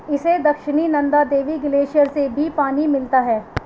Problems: constant background noise